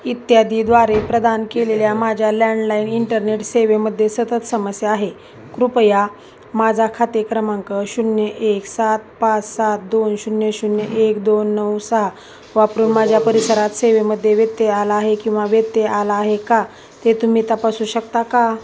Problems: none marked